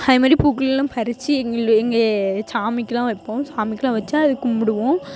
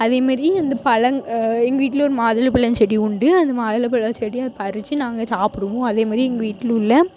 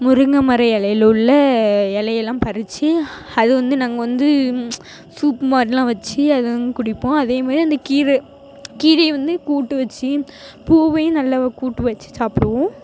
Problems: background sounds at intervals